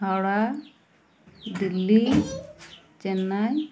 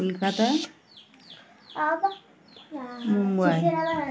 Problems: constant background noise, continuous background conversations